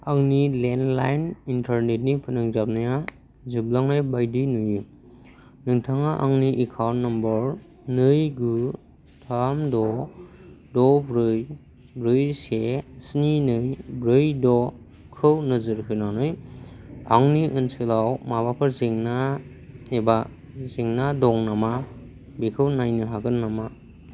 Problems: constant background noise